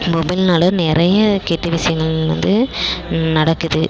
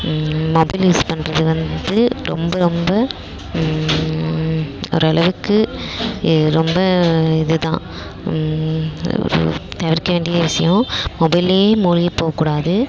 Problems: constant background noise